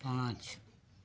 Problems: none marked